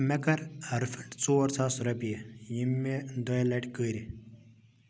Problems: none marked